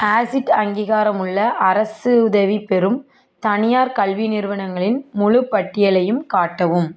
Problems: background conversations at intervals